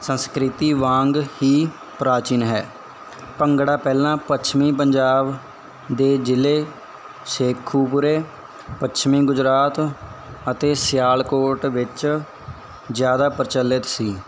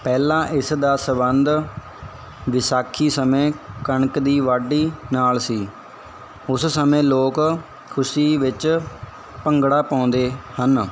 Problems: none marked